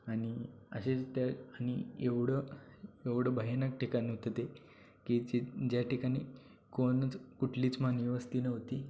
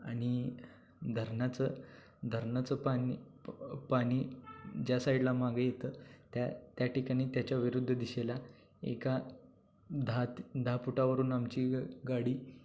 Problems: low volume